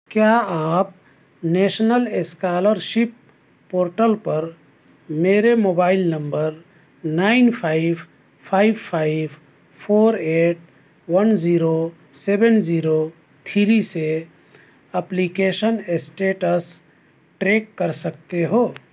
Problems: constant background noise